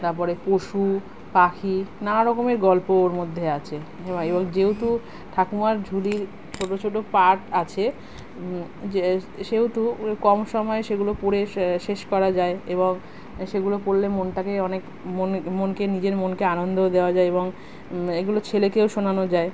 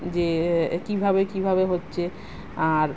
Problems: none marked